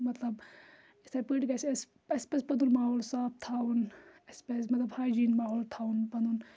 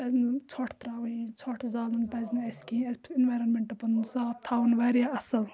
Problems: background sounds at intervals, background conversations at intervals